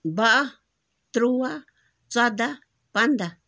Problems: background sounds at intervals